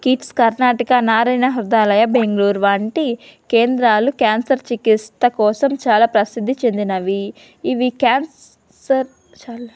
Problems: none marked